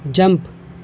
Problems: background sounds at intervals